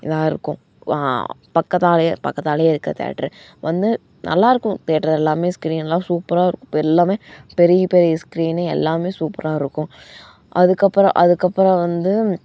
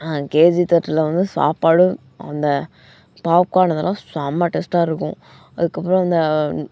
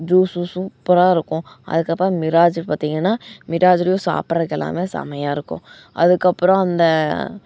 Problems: background sounds at intervals